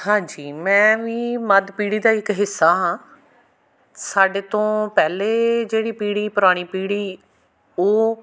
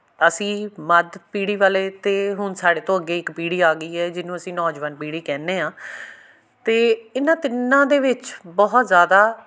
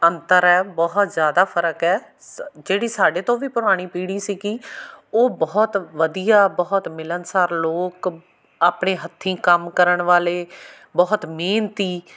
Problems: none marked